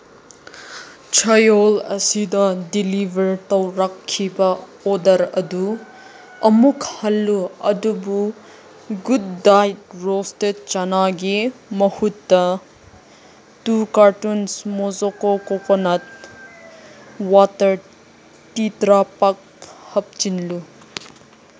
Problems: constant background noise